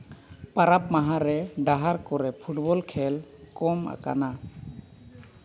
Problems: constant background noise